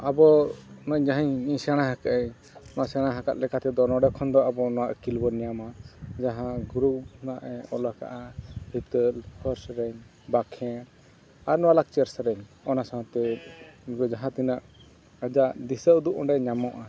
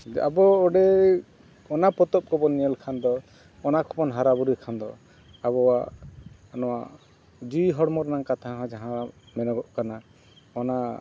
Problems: background sounds at intervals